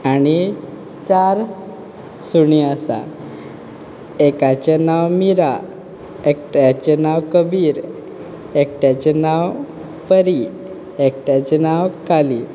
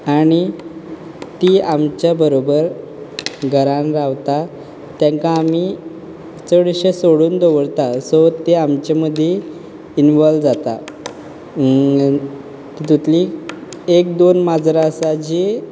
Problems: background conversations at intervals